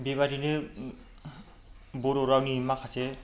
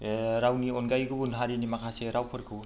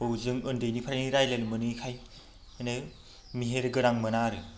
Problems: constant background noise